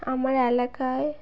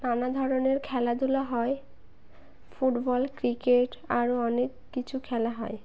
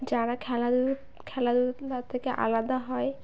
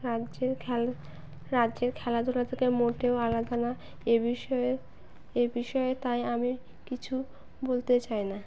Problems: constant background noise